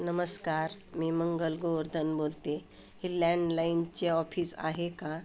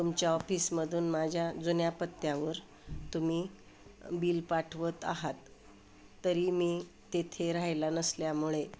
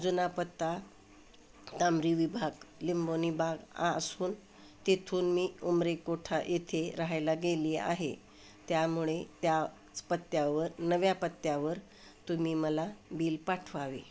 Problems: constant background noise, background conversations at intervals